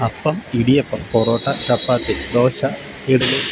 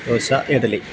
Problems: background sounds at intervals